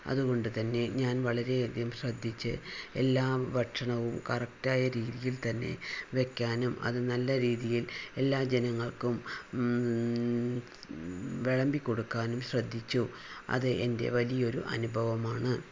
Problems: none marked